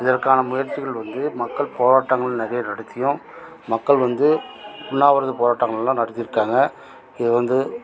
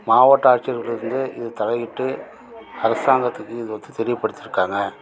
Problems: constant background noise, continuous background conversations